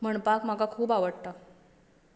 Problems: background sounds at intervals, echo